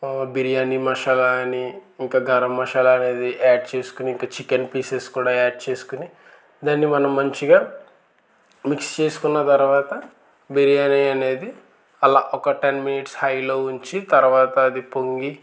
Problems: constant background noise